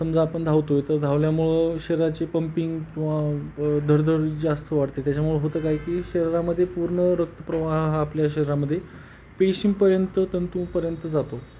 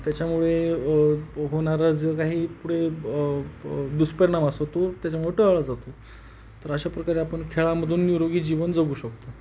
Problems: constant background noise